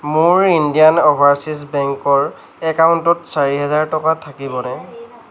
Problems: background conversations at intervals